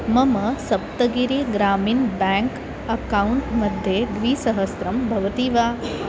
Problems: constant background noise